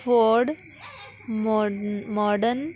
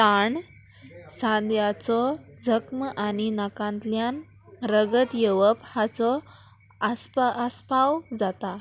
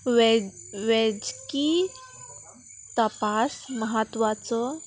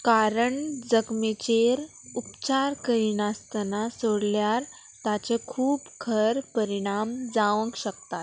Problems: constant background noise